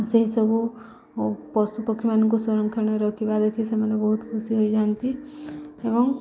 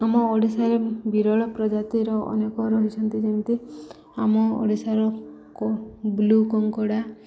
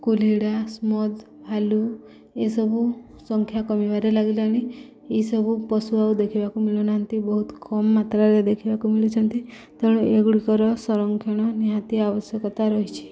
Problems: none marked